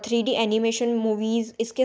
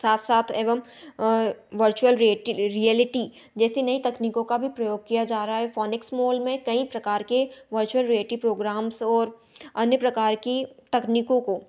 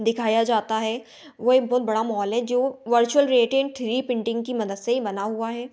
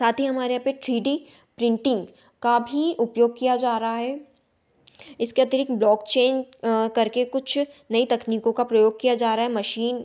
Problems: none marked